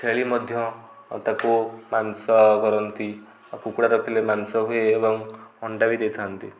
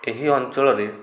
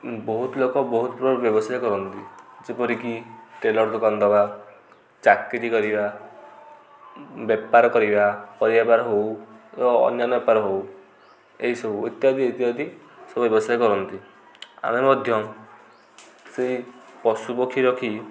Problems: constant background noise, continuous background conversations